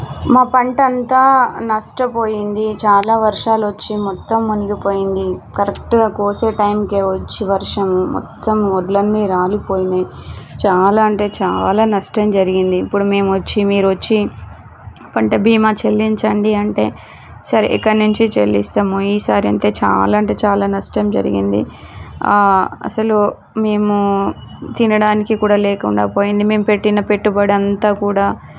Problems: background sounds at intervals